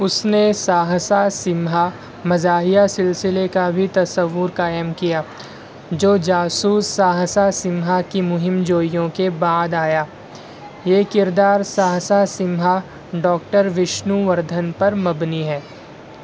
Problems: constant background noise, background conversations at intervals